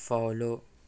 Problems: constant background noise